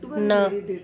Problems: constant background noise